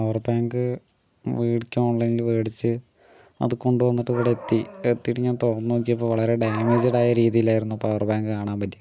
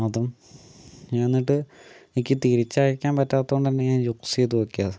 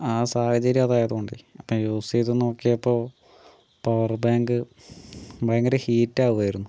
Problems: low volume